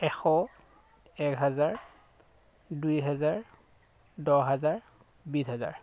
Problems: background sounds at intervals